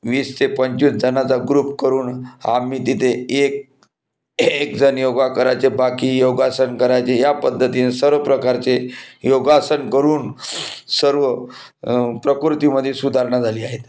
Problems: background sounds at intervals